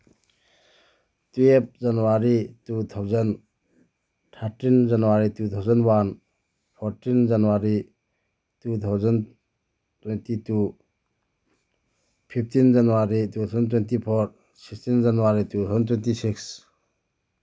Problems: none marked